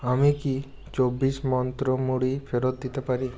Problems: none marked